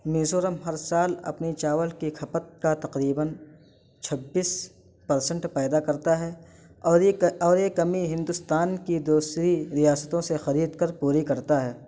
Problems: constant background noise